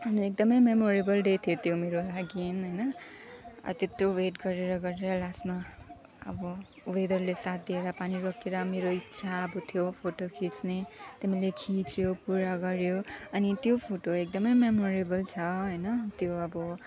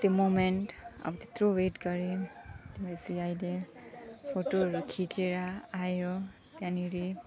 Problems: background sounds at intervals